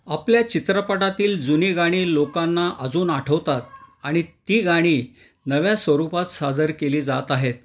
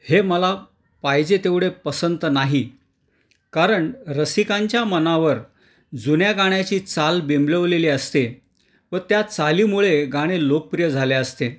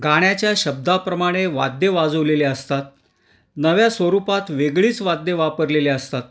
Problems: none marked